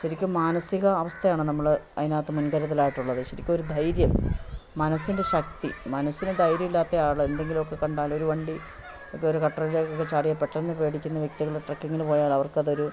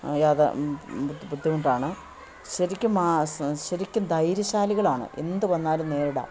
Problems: constant background noise